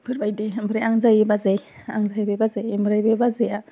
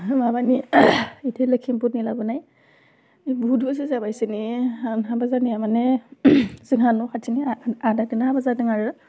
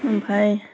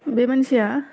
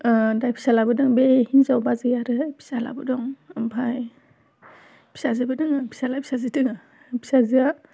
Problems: none marked